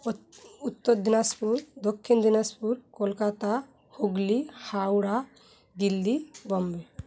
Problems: none marked